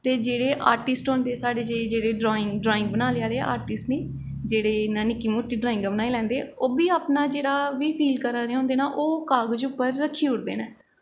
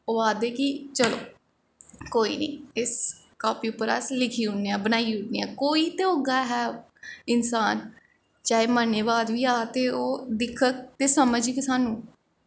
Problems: echo